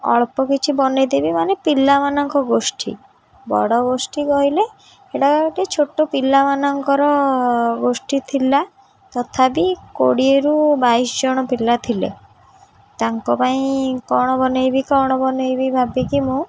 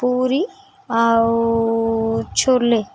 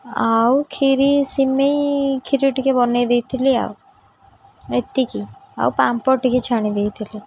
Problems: none marked